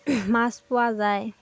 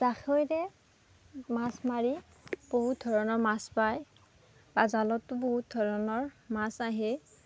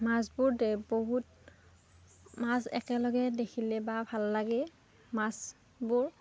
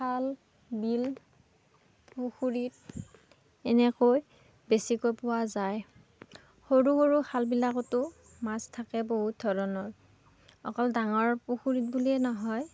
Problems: none marked